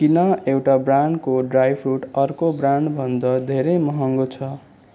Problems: constant background noise